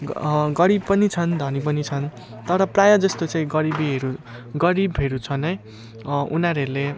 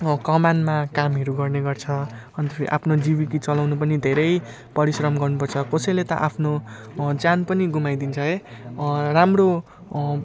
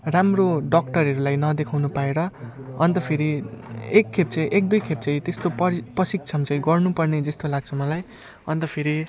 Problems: none marked